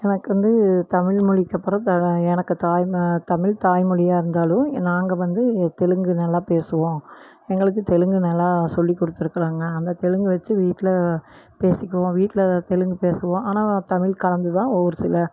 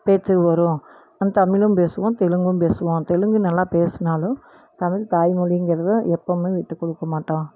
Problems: none marked